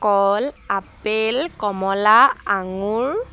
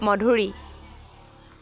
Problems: none marked